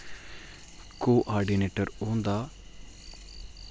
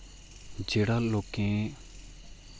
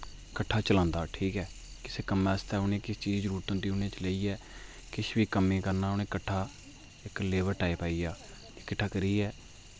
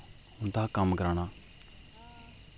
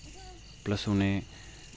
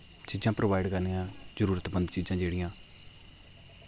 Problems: constant background noise